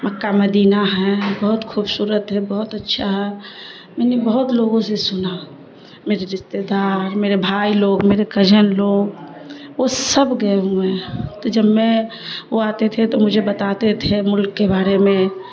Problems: constant background noise, low volume